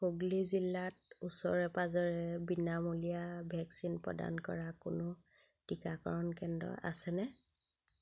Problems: constant background noise